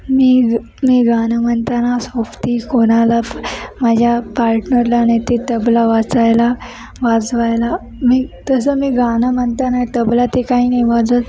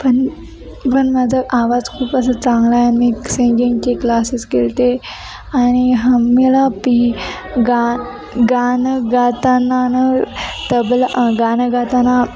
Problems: constant background noise, continuous background conversations